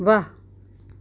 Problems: none marked